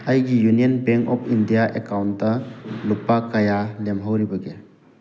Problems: background sounds at intervals